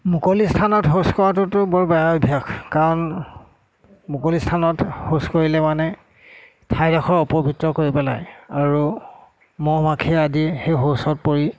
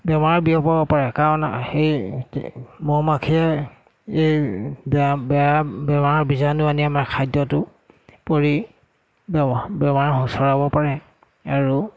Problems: none marked